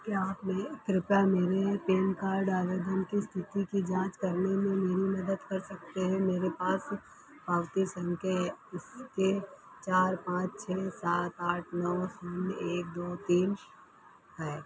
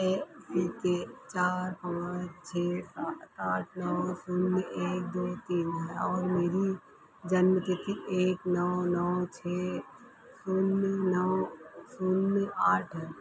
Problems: constant background noise